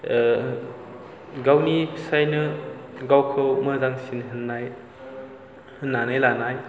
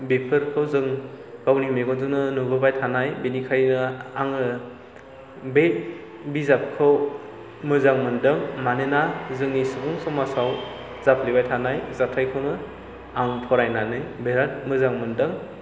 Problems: low volume